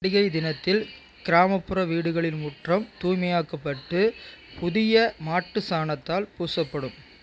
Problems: constant background noise